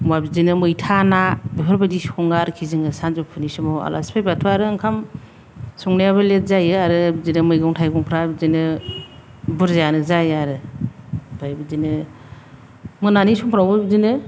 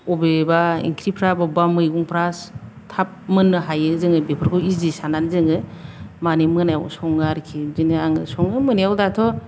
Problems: none marked